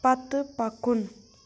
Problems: none marked